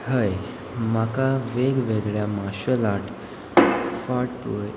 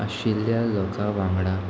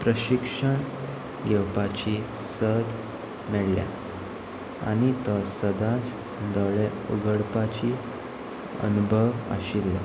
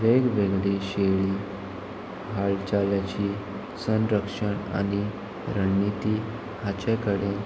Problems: constant background noise